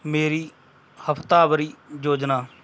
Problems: background sounds at intervals